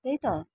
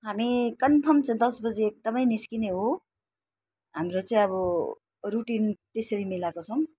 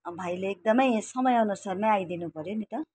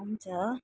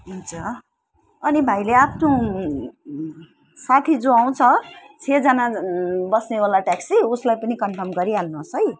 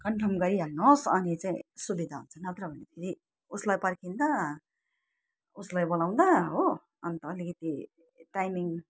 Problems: none marked